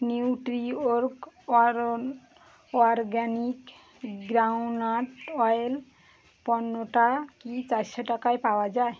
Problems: background sounds at intervals